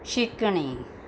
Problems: background sounds at intervals